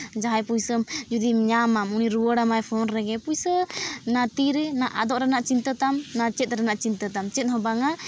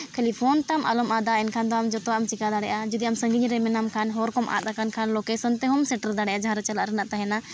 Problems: none marked